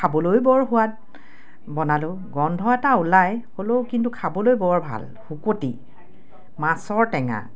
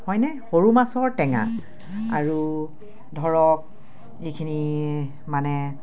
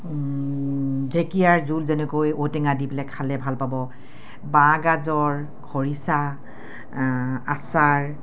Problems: none marked